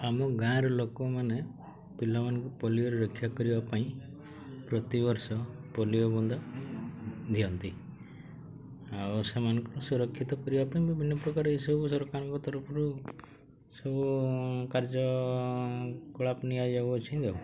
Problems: low volume